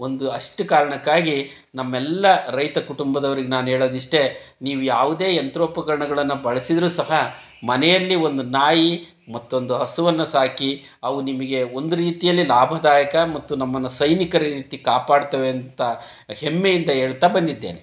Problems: none marked